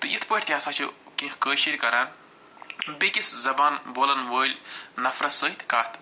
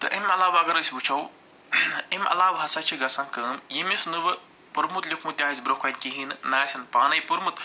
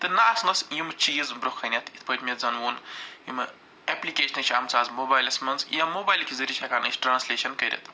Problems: none marked